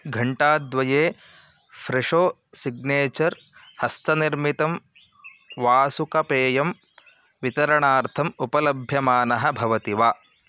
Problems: none marked